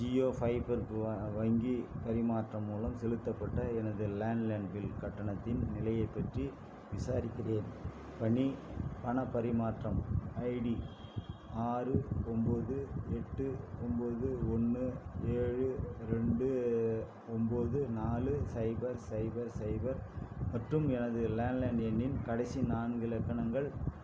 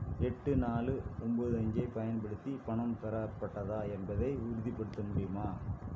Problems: constant background noise